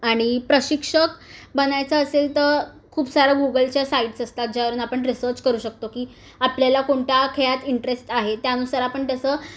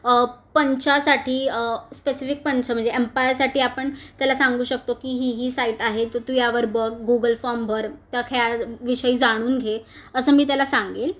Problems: none marked